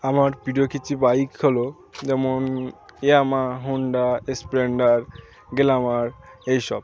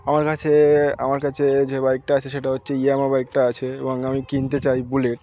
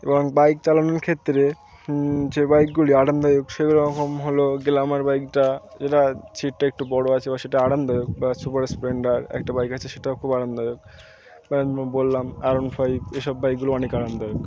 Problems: constant background noise, continuous background conversations